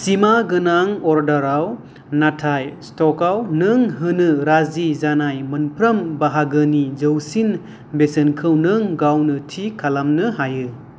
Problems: low volume